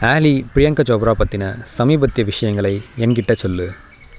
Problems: none marked